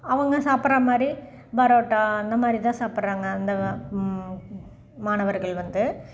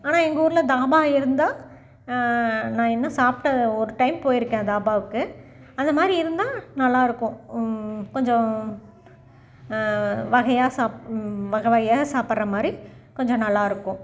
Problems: background sounds at intervals